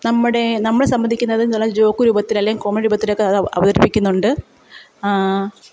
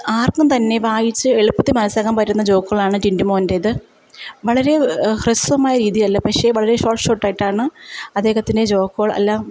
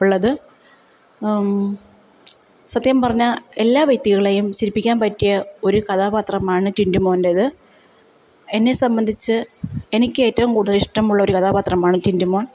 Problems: none marked